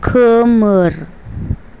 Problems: none marked